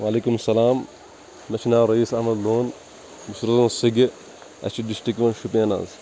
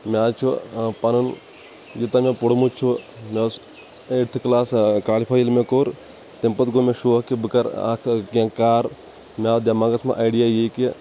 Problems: constant background noise